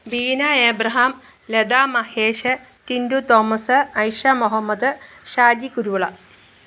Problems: none marked